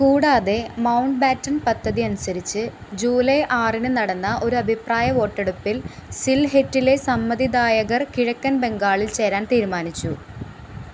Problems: constant background noise